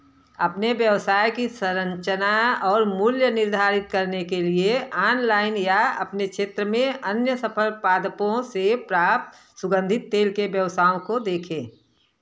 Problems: constant background noise